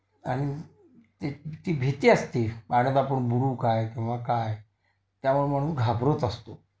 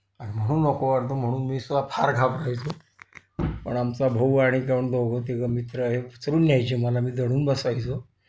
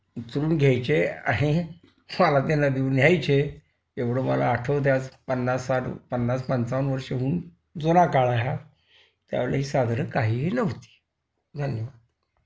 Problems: constant background noise, continuous background conversations